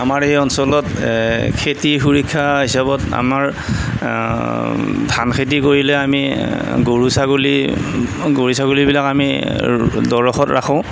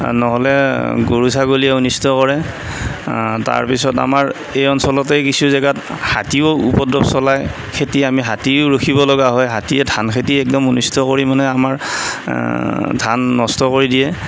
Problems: constant background noise